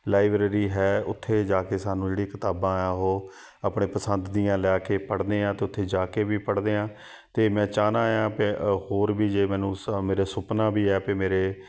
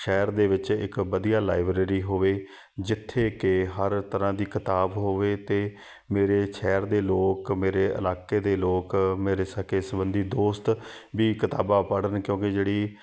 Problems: background sounds at intervals